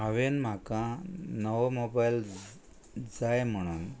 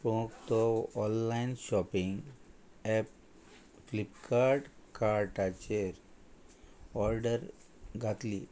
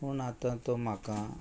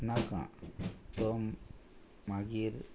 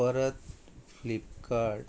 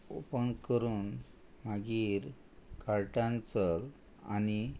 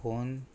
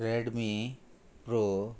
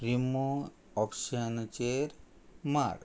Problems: none marked